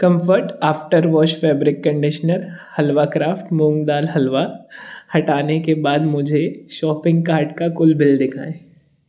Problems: background sounds at intervals